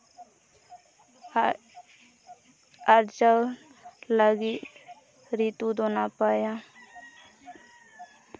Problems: none marked